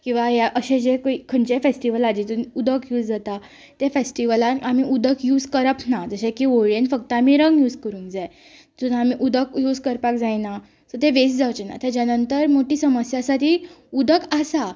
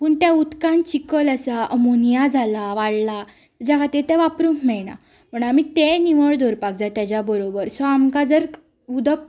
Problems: none marked